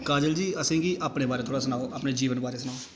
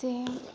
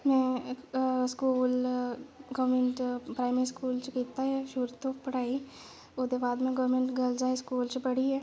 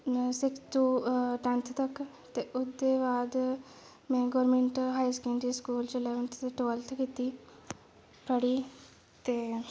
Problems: constant background noise